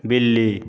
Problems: constant background noise